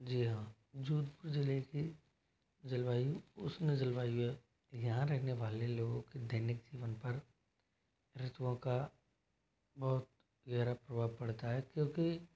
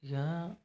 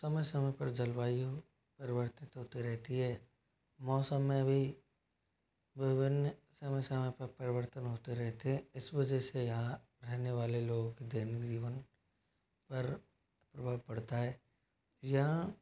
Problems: constant background noise